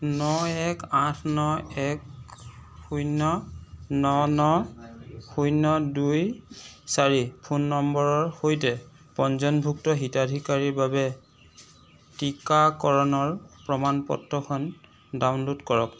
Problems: constant background noise